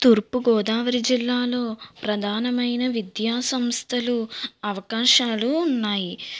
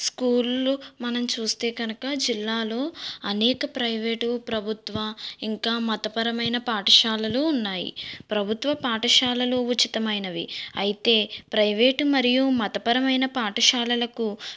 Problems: background sounds at intervals